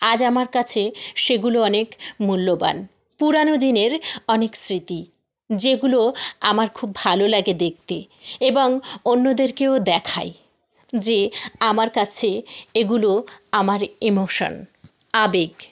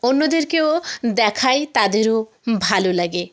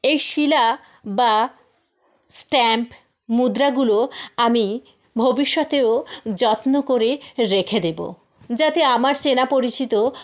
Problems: none marked